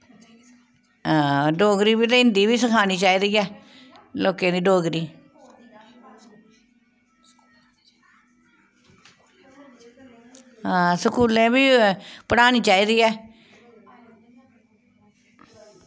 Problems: background sounds at intervals